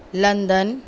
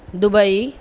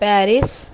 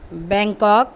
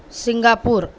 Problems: none marked